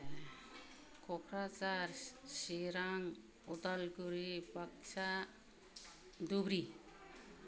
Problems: low volume